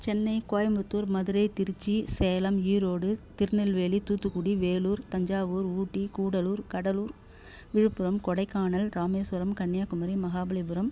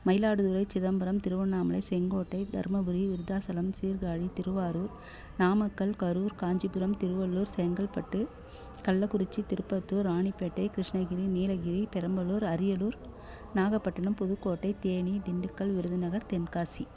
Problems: none marked